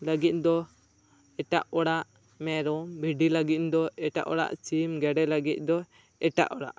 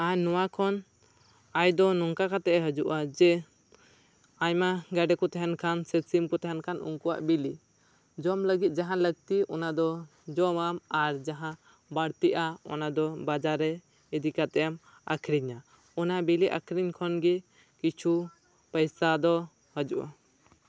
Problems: none marked